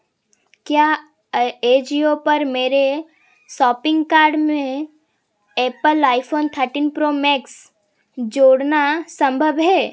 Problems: constant background noise